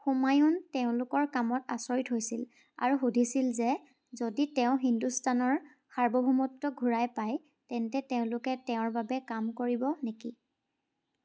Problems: background sounds at intervals